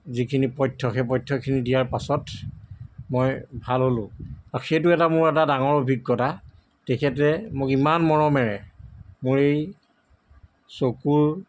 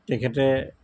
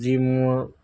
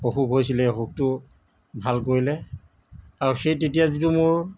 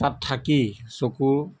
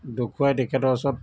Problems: background sounds at intervals